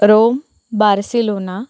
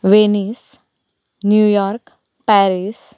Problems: constant background noise